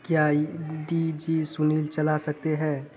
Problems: none marked